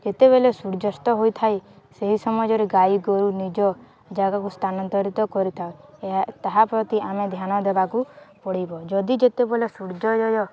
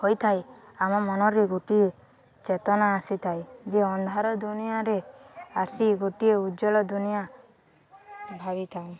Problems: constant background noise, continuous background conversations